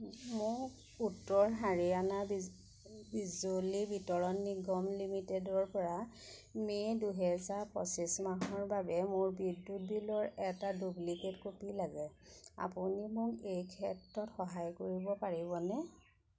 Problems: constant background noise